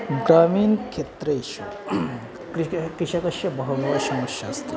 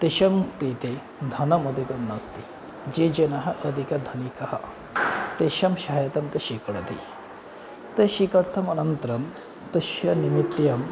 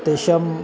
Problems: constant background noise